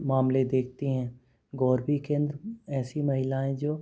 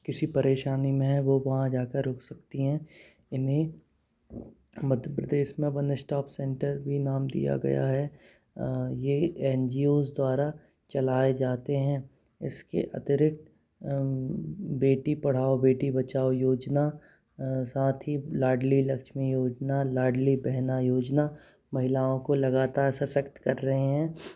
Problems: constant background noise